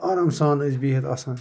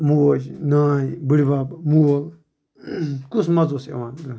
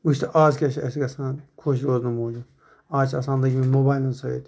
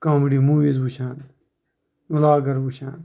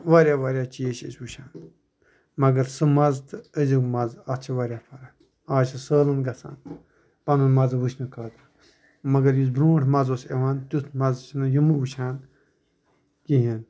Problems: constant background noise